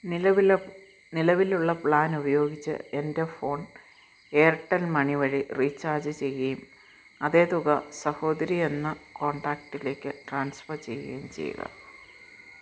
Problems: low volume